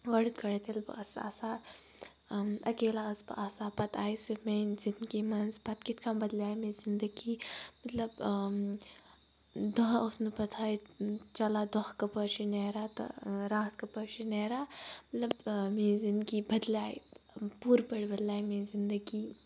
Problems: none marked